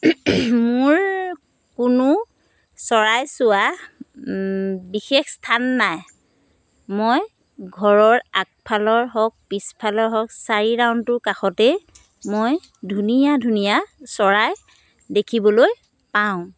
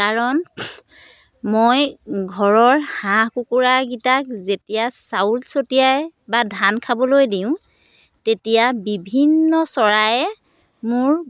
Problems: constant background noise